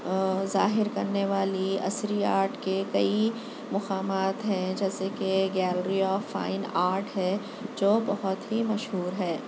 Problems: constant background noise